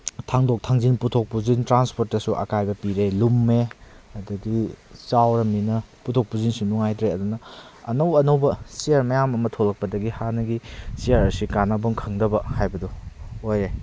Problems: none marked